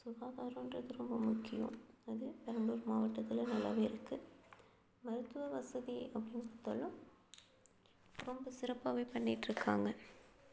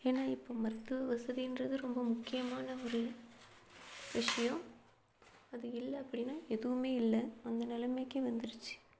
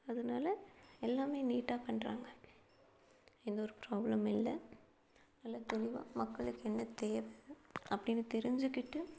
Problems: none marked